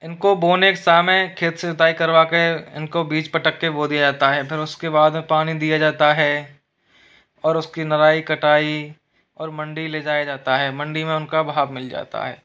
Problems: background sounds at intervals